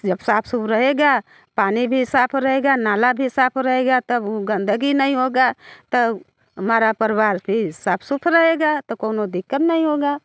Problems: constant background noise